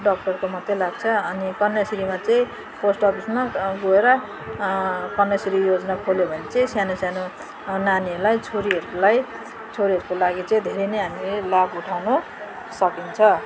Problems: none marked